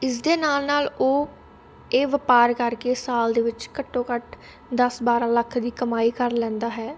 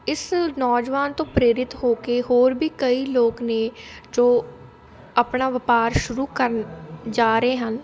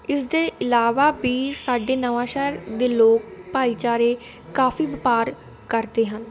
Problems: constant background noise, continuous background conversations